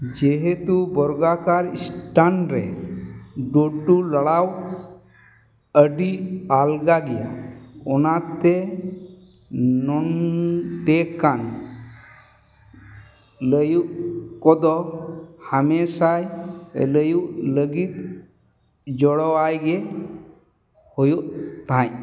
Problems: background sounds at intervals, echo